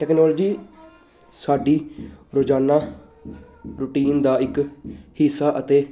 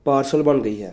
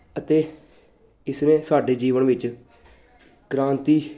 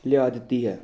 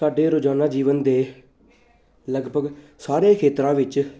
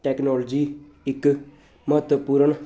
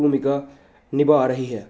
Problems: constant background noise